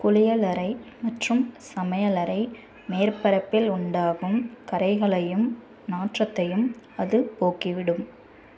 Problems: none marked